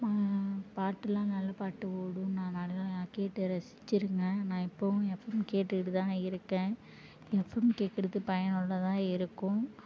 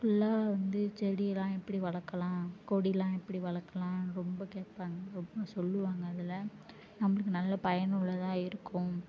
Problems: low volume